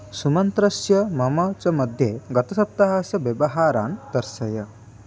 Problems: constant background noise